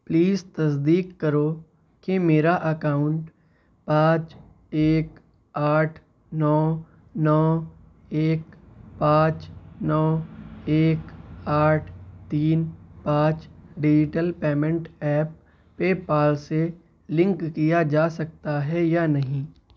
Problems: constant background noise